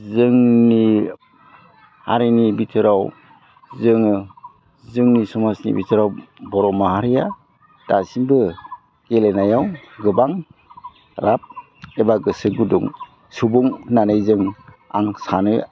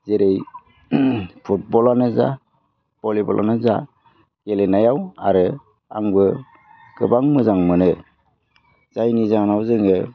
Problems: constant background noise